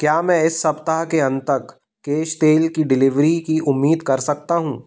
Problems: background sounds at intervals